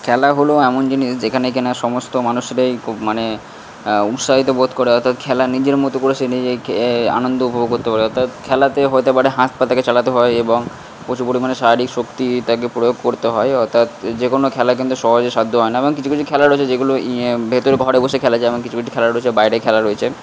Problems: constant background noise